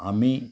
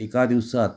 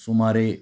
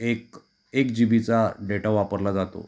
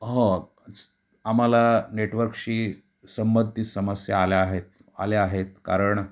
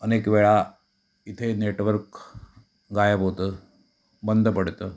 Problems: background sounds at intervals